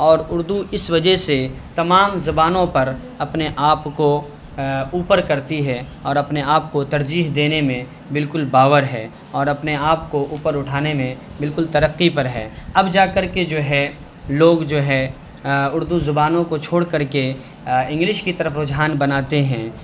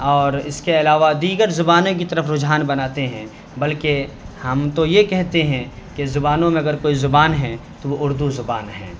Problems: constant background noise